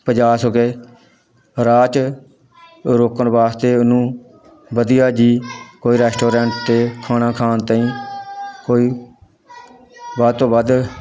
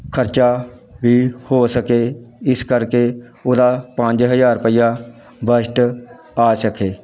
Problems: background sounds at intervals, background conversations at intervals